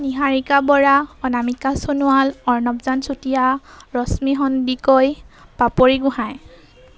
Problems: none marked